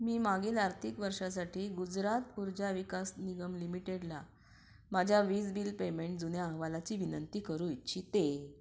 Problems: background sounds at intervals